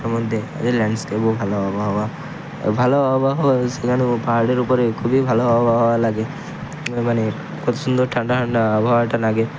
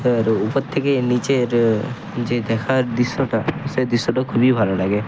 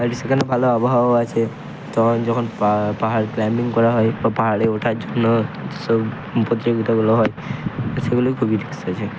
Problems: constant background noise